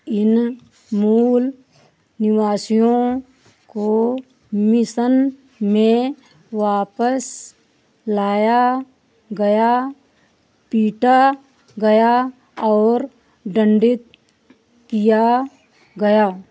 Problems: none marked